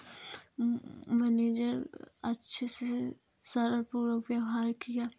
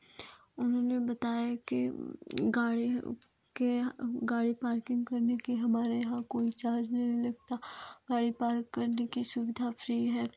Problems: constant background noise